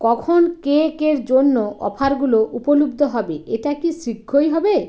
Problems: none marked